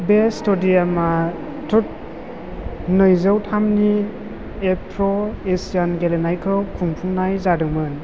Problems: constant background noise